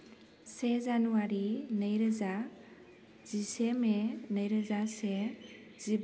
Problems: constant background noise